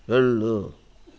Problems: none marked